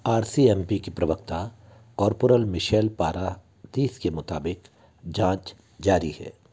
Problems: low volume